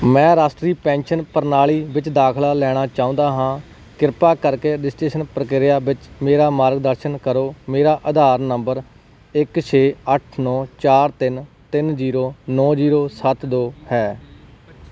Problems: background sounds at intervals